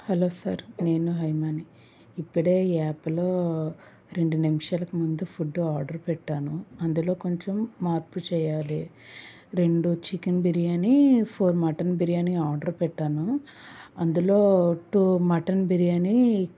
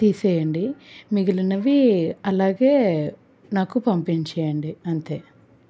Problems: background sounds at intervals